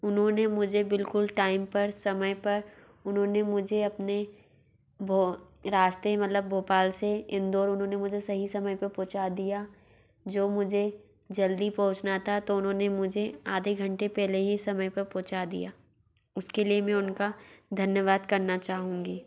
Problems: background sounds at intervals